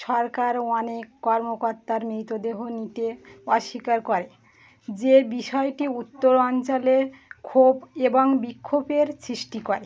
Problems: background sounds at intervals